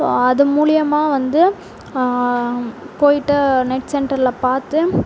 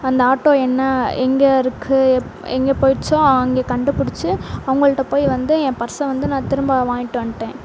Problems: none marked